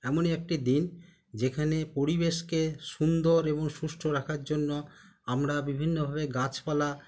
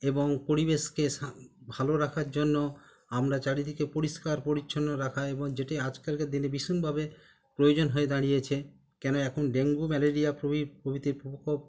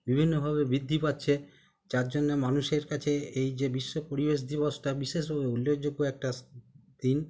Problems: constant background noise